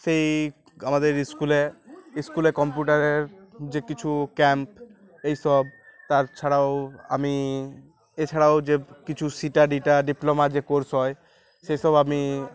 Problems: constant background noise, continuous background conversations